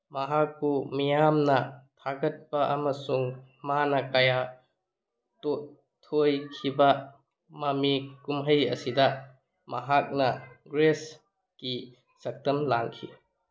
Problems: none marked